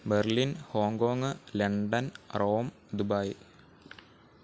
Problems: low volume